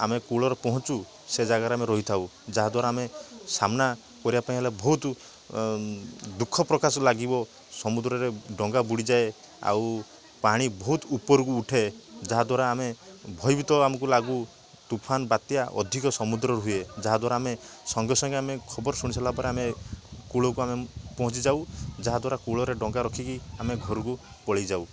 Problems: constant background noise